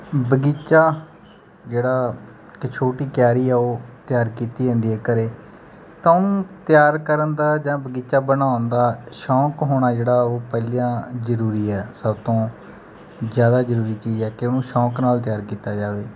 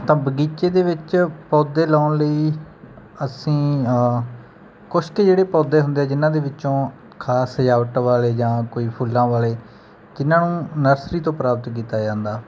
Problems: none marked